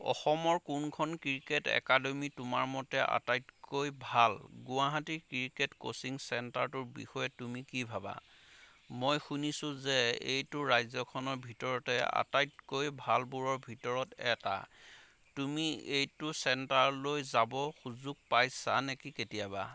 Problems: none marked